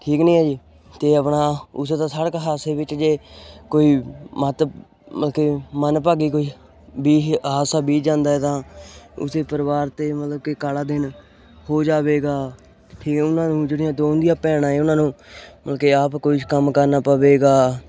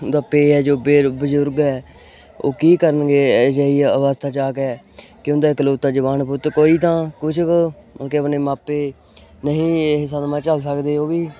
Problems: background sounds at intervals